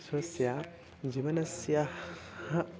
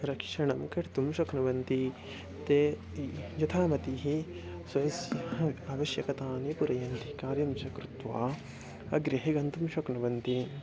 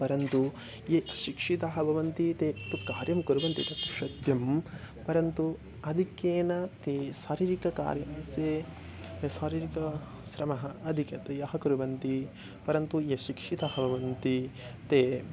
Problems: constant background noise